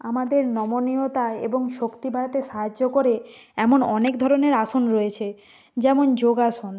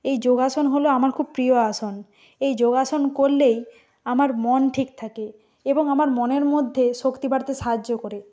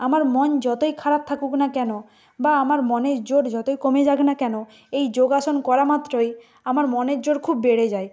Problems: background sounds at intervals